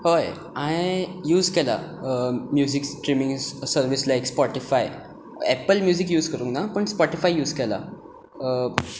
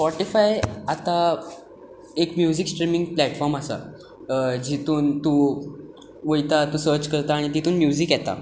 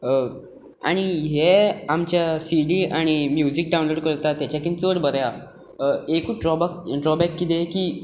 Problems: none marked